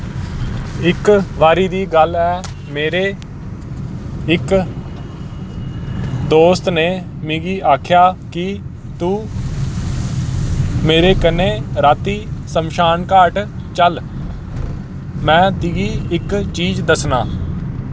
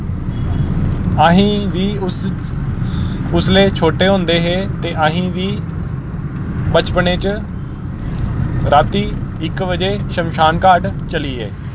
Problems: constant background noise